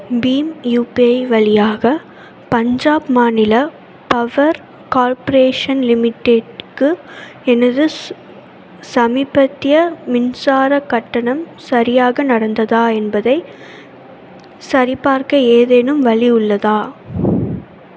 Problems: constant background noise